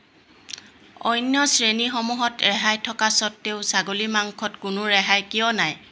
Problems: constant background noise